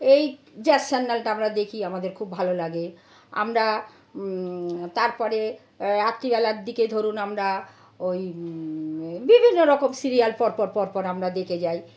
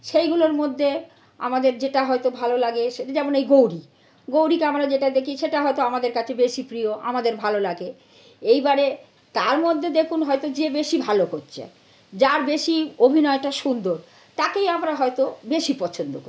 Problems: none marked